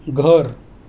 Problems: constant background noise